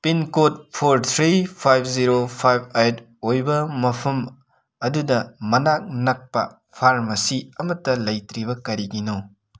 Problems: background sounds at intervals